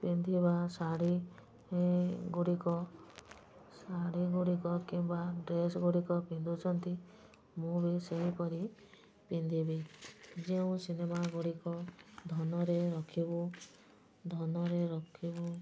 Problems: low volume